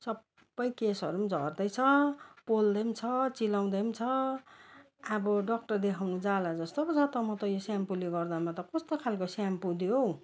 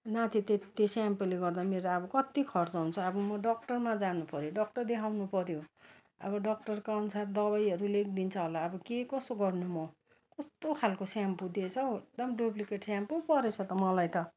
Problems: constant background noise